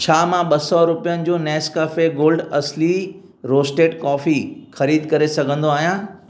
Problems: none marked